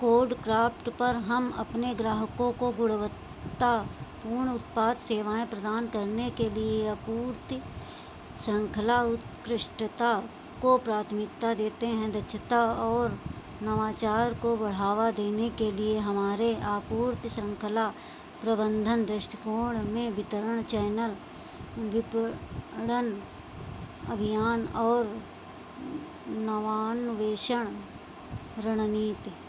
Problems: constant background noise